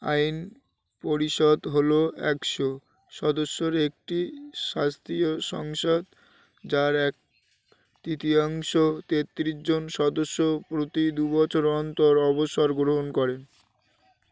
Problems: constant background noise